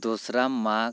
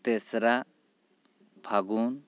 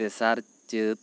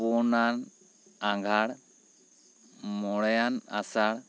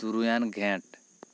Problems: none marked